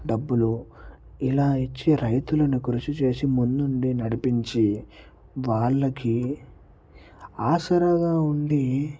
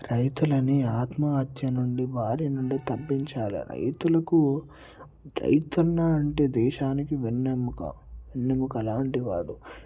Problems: low volume